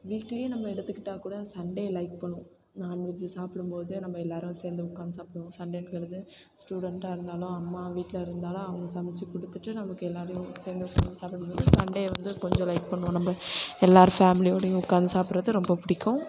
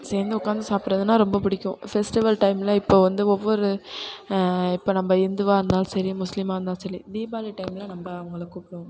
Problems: background sounds at intervals, background conversations at intervals